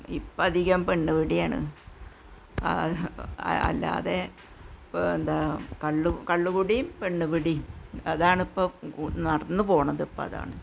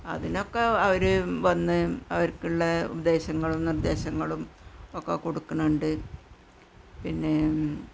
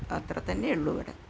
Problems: constant background noise, low volume